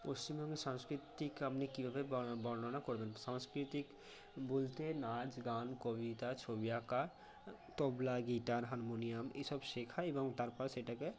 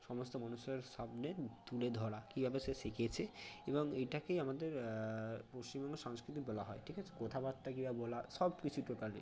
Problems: low volume